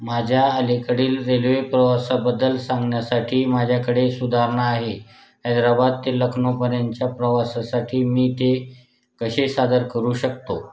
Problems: none marked